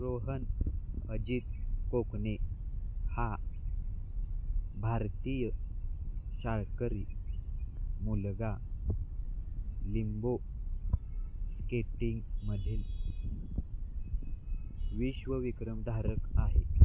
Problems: none marked